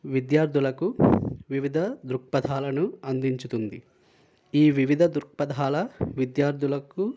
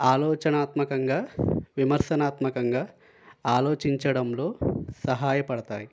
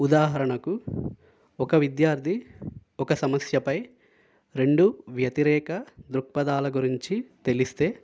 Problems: none marked